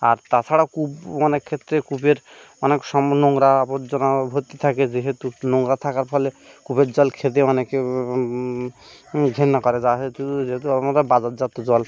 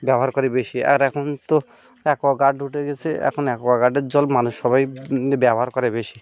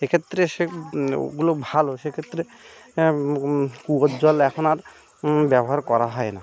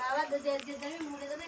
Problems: none marked